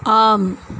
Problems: constant background noise